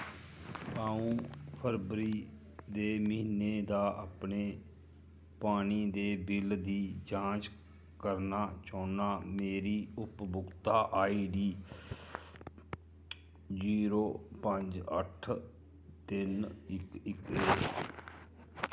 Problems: low volume